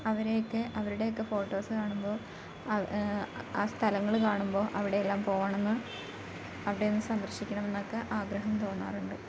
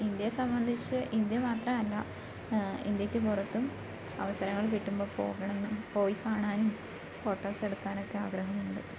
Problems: background sounds at intervals